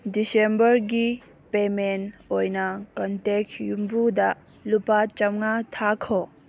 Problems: background sounds at intervals